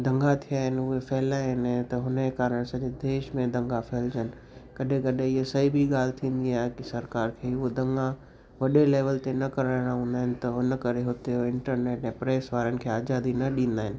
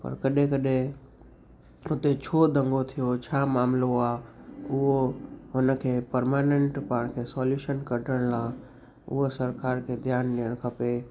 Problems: constant background noise